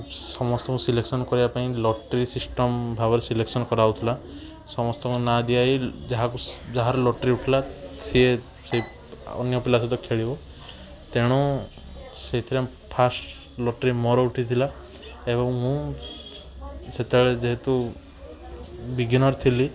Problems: background sounds at intervals, background conversations at intervals